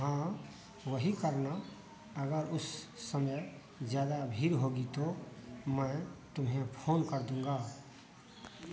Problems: constant background noise